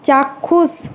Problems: constant background noise